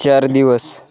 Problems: background sounds at intervals, continuous background conversations